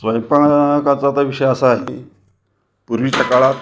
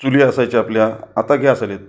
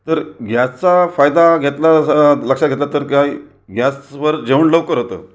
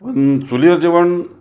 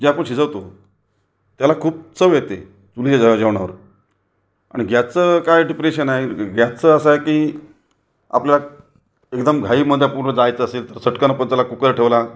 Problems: none marked